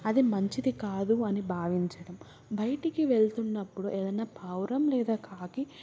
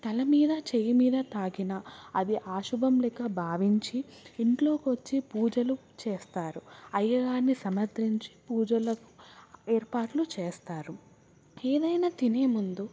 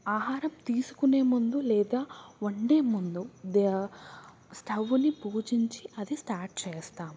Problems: constant background noise